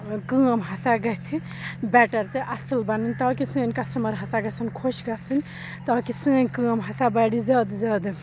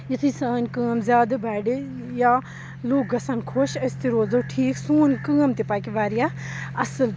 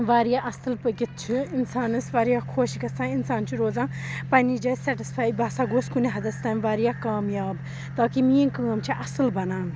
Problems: background sounds at intervals, background conversations at intervals